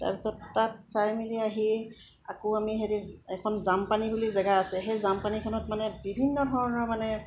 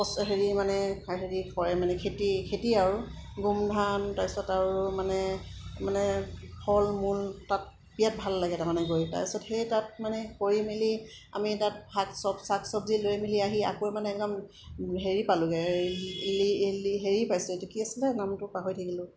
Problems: background sounds at intervals, background conversations at intervals